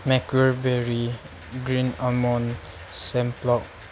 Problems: background sounds at intervals